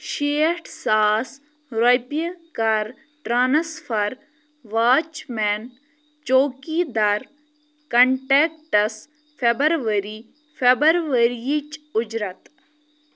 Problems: none marked